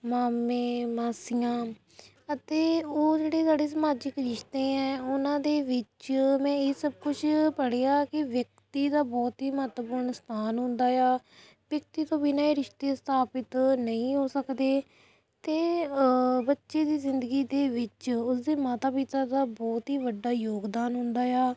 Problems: none marked